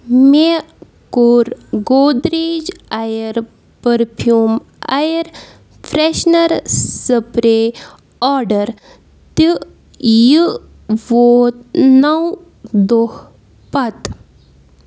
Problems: background sounds at intervals